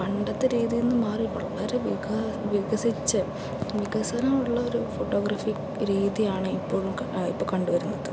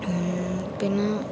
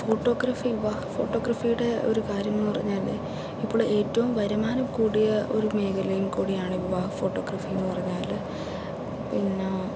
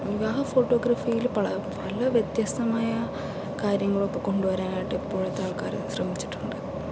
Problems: constant background noise, low volume